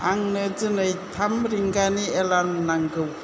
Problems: none marked